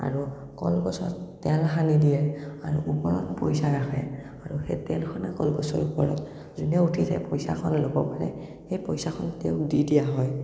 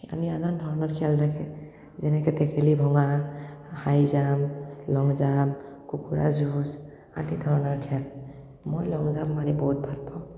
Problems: none marked